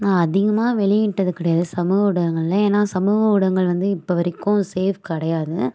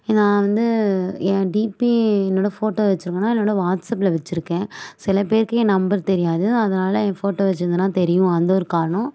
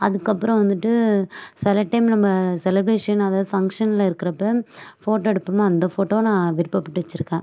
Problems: background sounds at intervals